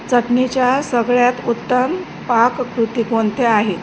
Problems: none marked